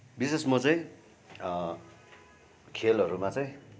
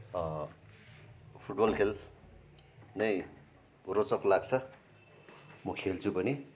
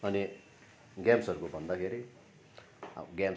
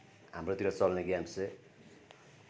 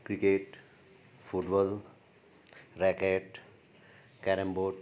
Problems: none marked